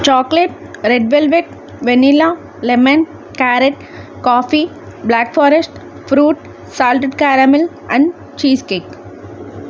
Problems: none marked